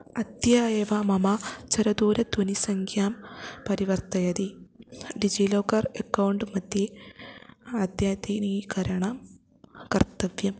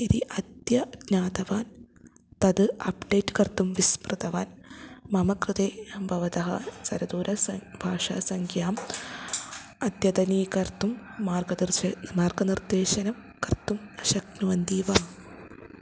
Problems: constant background noise